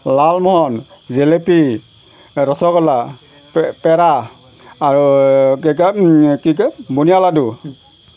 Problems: none marked